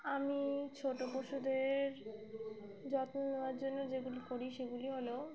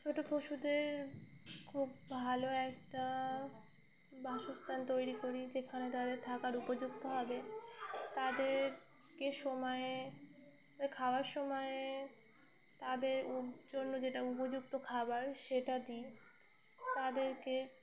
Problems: constant background noise